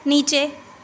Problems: none marked